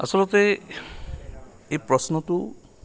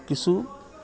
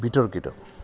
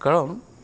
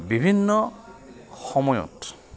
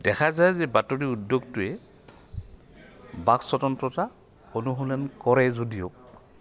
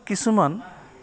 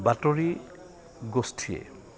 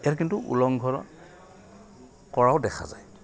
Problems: none marked